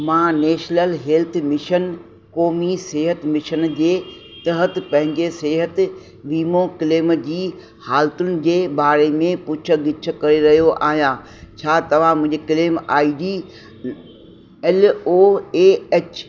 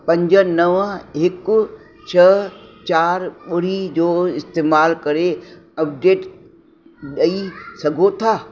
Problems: constant background noise, echo